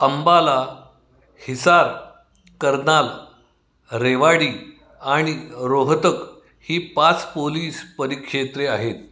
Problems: none marked